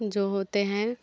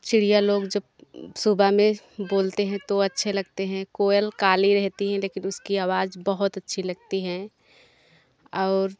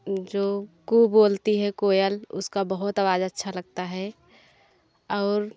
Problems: background sounds at intervals